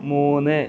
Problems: background sounds at intervals